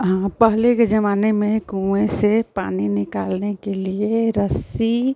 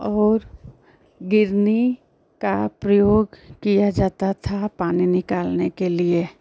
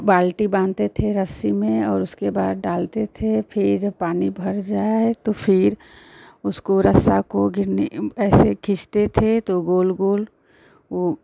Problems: constant background noise